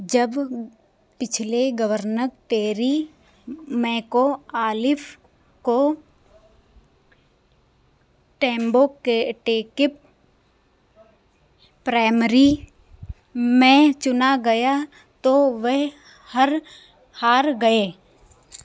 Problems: none marked